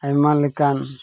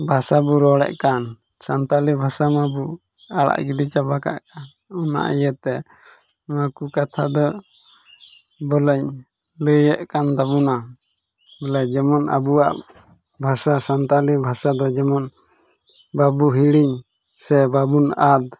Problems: background sounds at intervals